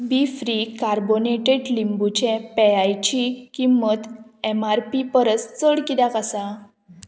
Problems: none marked